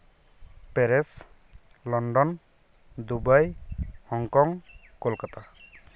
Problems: background sounds at intervals